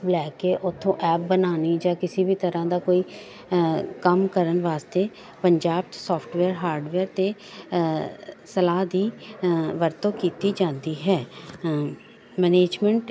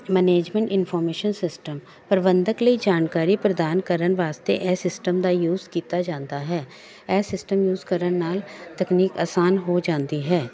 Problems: none marked